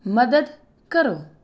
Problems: none marked